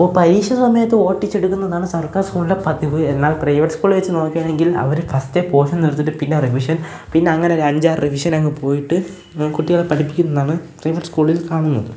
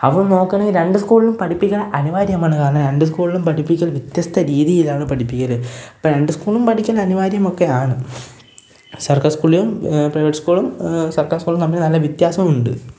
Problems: background sounds at intervals